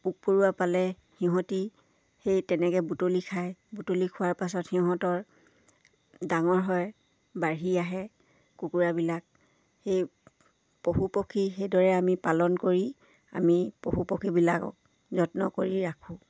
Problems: none marked